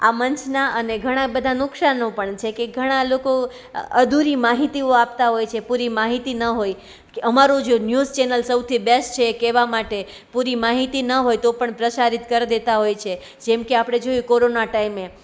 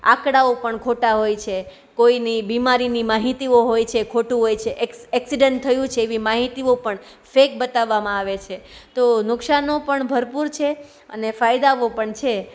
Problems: none marked